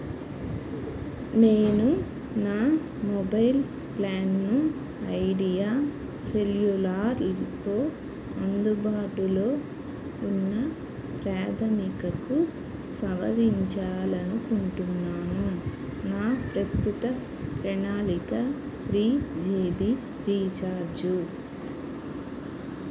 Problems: constant background noise